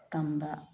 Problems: low volume